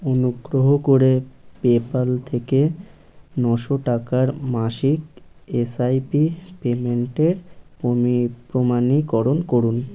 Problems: none marked